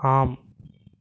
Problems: none marked